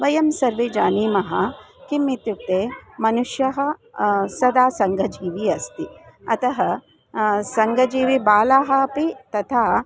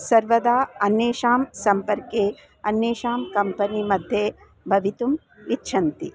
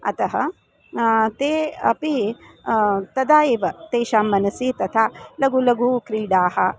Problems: constant background noise